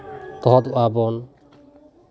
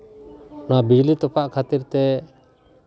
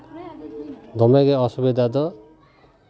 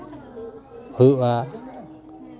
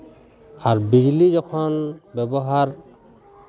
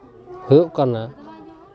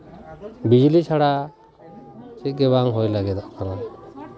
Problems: continuous background conversations